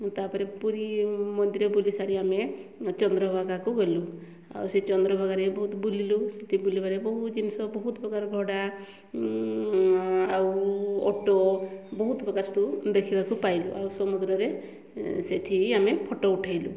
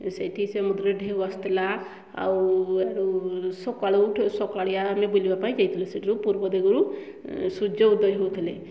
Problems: none marked